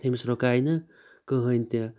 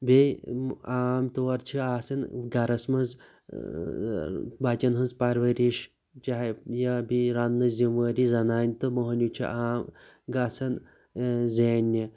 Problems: background sounds at intervals